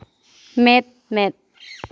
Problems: none marked